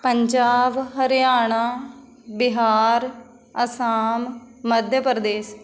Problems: background conversations at intervals